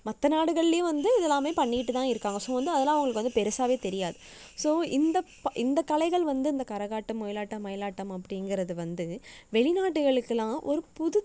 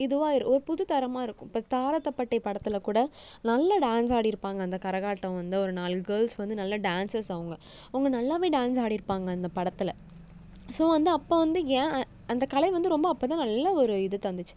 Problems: background sounds at intervals